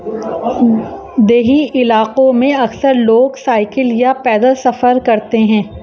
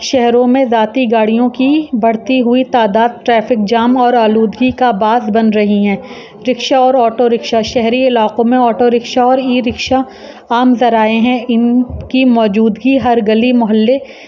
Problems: constant background noise